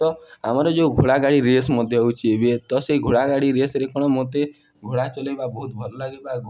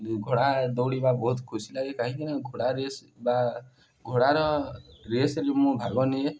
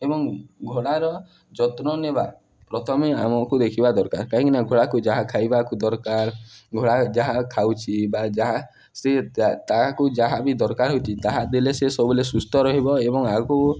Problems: background sounds at intervals